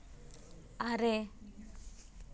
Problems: background sounds at intervals